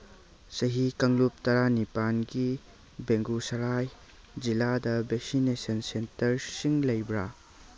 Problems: background sounds at intervals